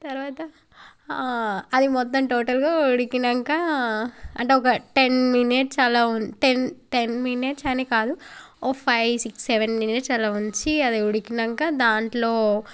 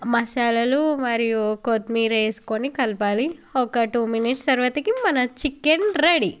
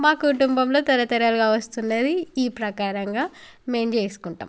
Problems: background conversations at intervals